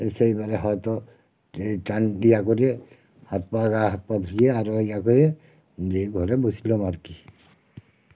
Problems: none marked